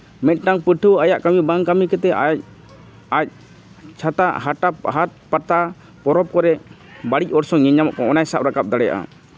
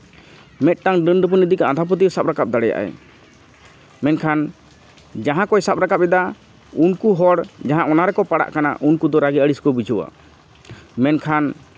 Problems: constant background noise, background conversations at intervals